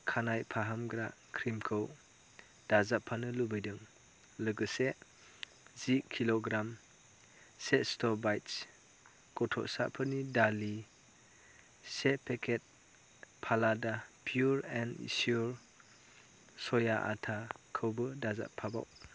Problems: low volume